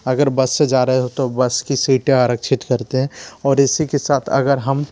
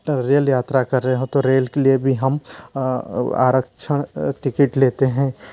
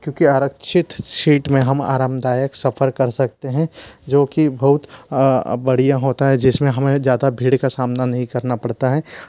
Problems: constant background noise, background conversations at intervals